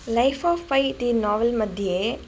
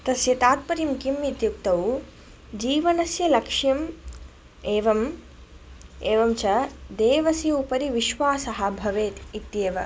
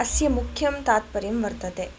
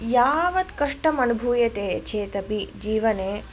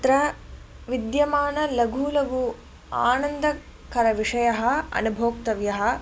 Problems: none marked